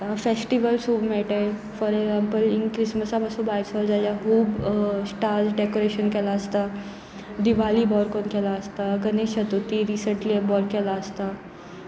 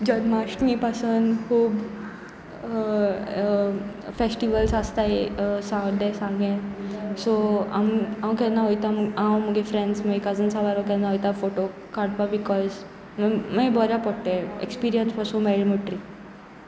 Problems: continuous background conversations